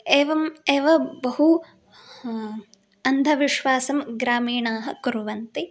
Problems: background sounds at intervals